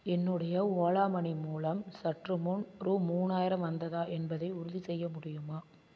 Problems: constant background noise